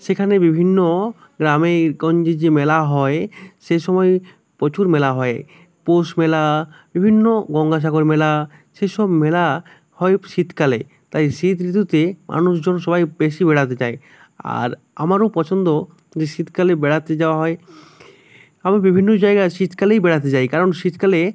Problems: none marked